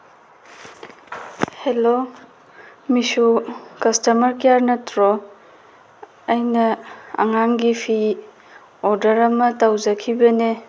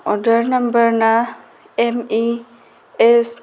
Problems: background sounds at intervals